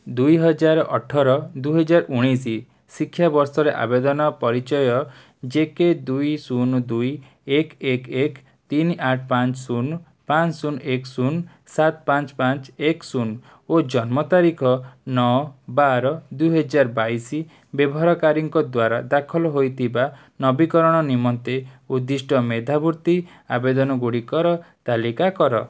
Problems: none marked